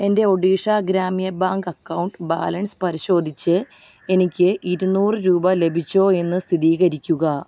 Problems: none marked